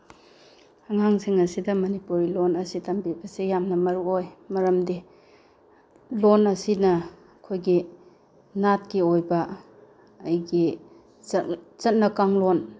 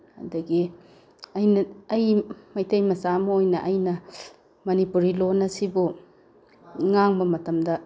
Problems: background sounds at intervals